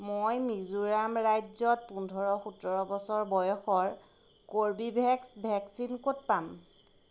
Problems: constant background noise